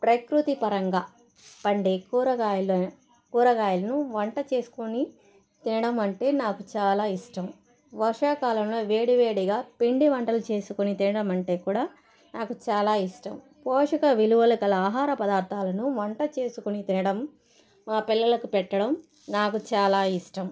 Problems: constant background noise